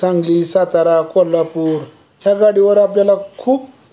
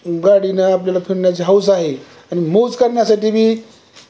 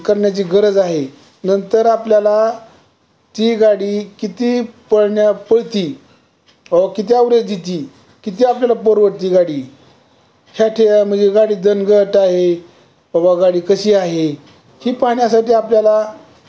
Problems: constant background noise